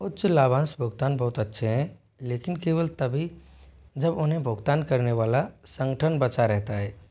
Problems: background sounds at intervals